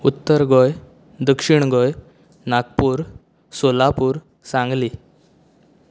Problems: constant background noise